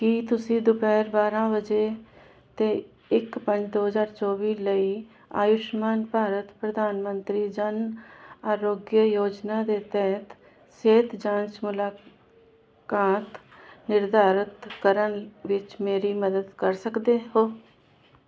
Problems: constant background noise